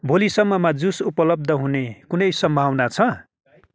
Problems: none marked